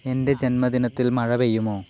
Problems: constant background noise